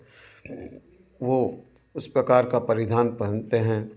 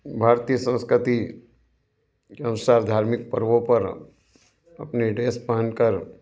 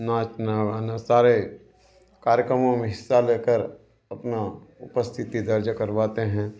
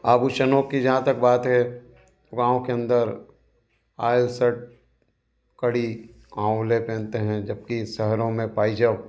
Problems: none marked